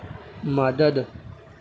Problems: constant background noise